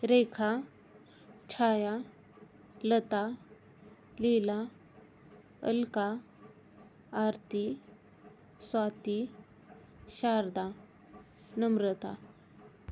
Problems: none marked